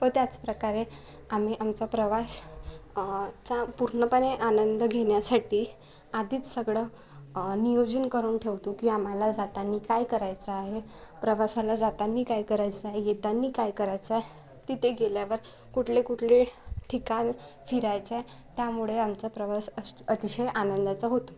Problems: none marked